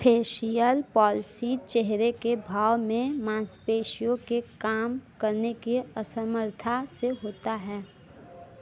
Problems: constant background noise